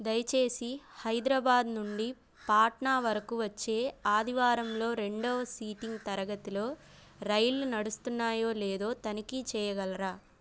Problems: background sounds at intervals